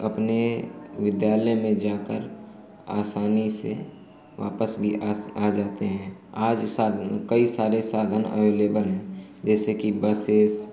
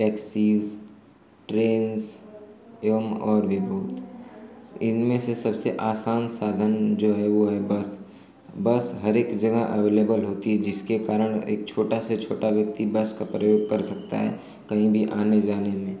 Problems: none marked